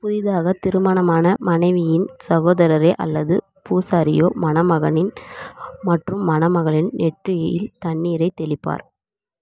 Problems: background conversations at intervals